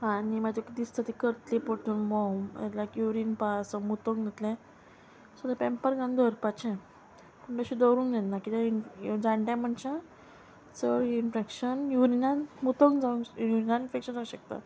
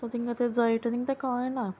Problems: constant background noise